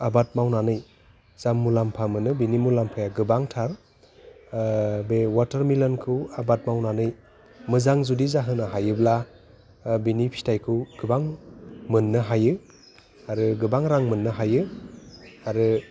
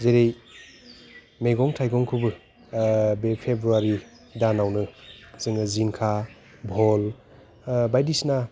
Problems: constant background noise